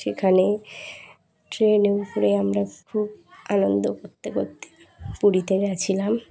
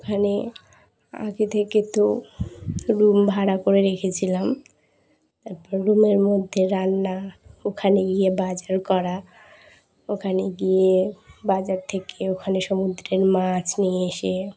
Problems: constant background noise, continuous background conversations